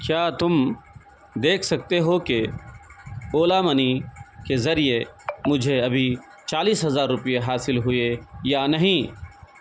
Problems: none marked